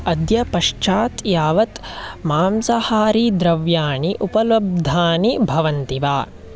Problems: none marked